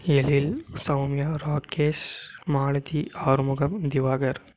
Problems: none marked